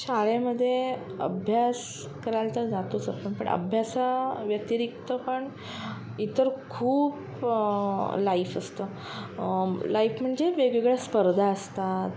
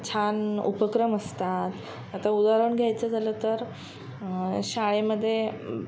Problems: background sounds at intervals